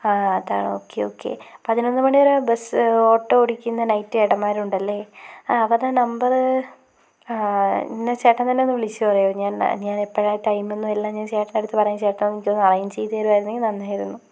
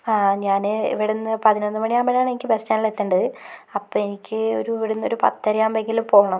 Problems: constant background noise